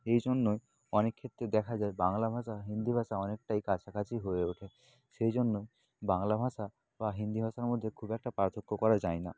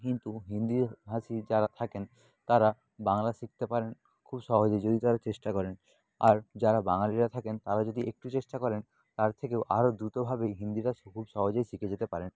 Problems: constant background noise